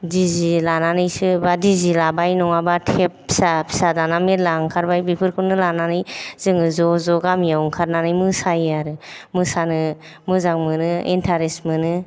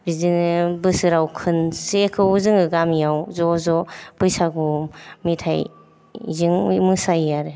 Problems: none marked